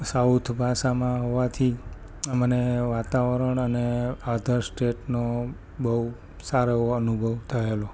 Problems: constant background noise